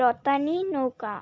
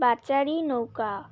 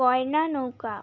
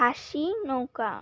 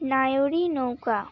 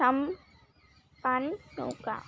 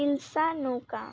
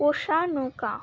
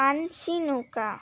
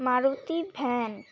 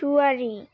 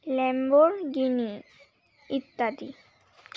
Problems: constant background noise